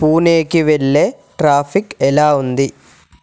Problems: none marked